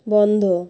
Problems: constant background noise